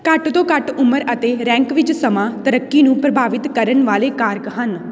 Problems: constant background noise